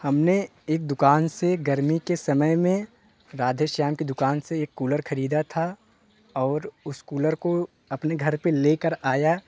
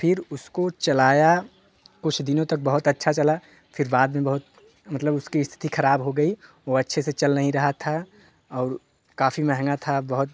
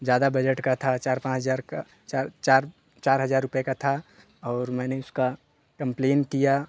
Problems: constant background noise